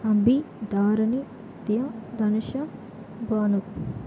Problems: constant background noise, continuous background conversations